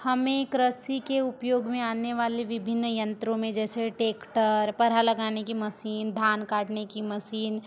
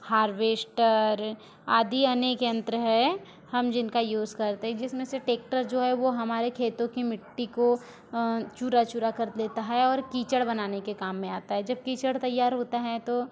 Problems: continuous background conversations